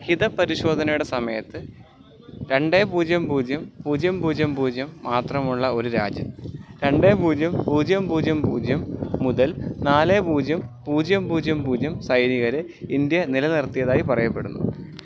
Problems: constant background noise